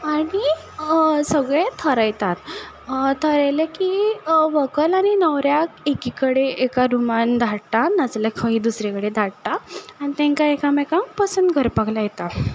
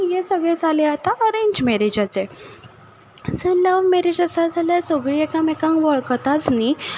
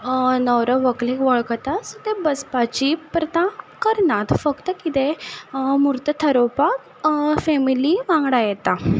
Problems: none marked